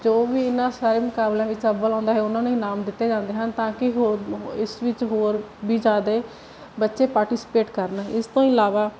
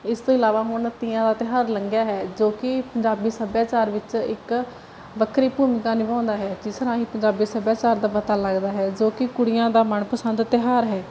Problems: none marked